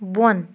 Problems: background sounds at intervals